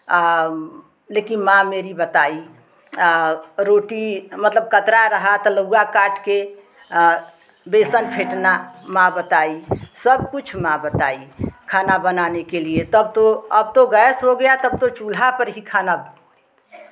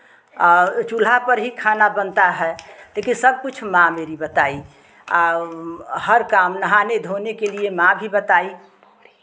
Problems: constant background noise, continuous background conversations